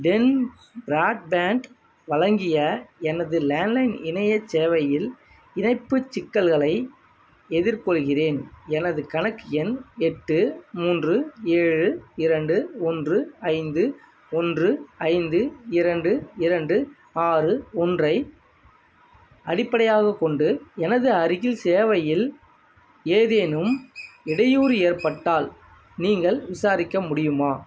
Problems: background sounds at intervals